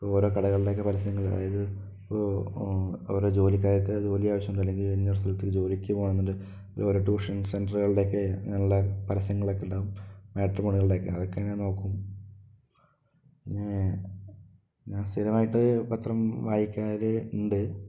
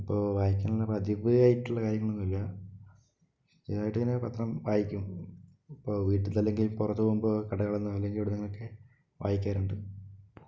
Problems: low volume